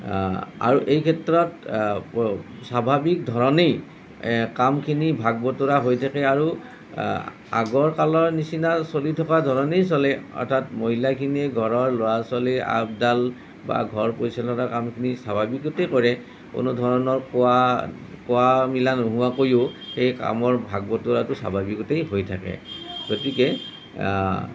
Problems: none marked